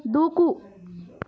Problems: background conversations at intervals